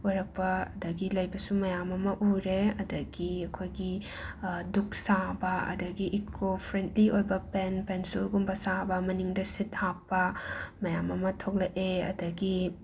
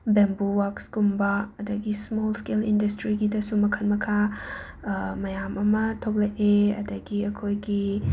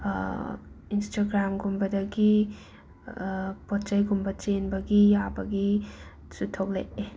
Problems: constant background noise